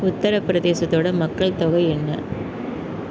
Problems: background sounds at intervals